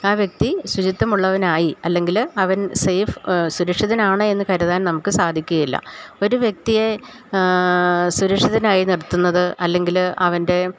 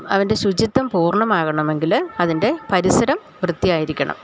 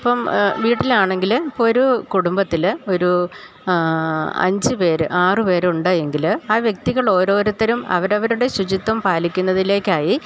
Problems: none marked